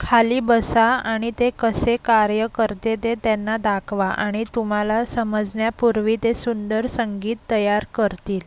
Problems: constant background noise, low volume